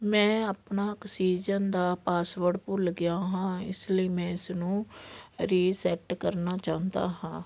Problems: background sounds at intervals